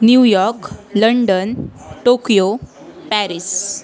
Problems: constant background noise, background conversations at intervals